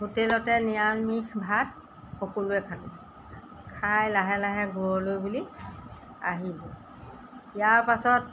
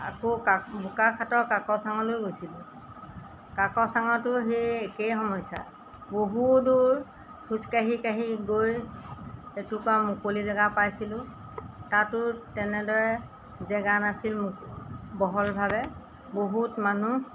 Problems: none marked